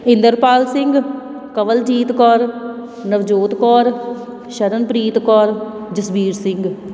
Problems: background sounds at intervals